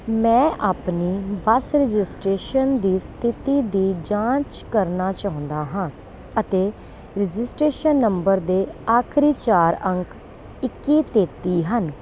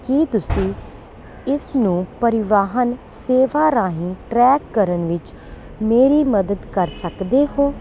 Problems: constant background noise